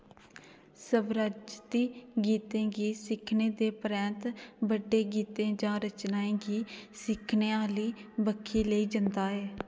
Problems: none marked